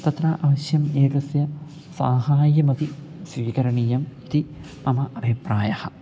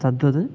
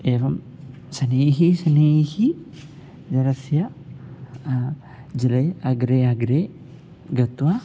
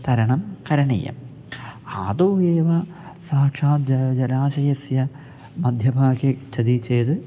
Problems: none marked